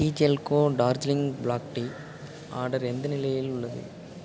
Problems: none marked